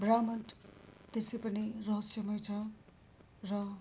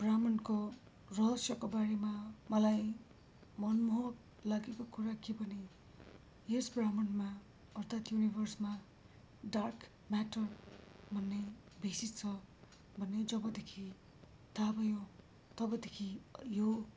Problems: low volume